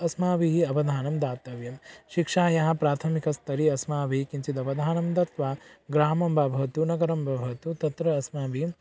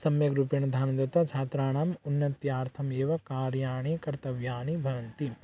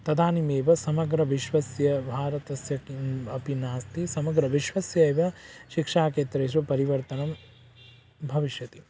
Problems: none marked